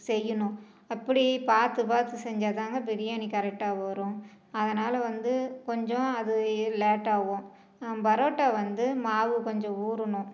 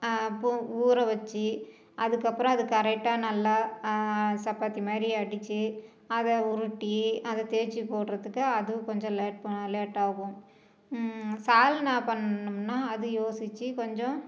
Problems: none marked